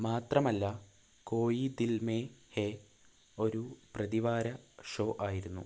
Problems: constant background noise, low volume